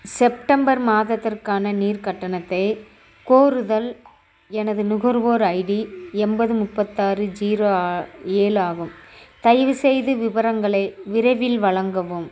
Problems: background sounds at intervals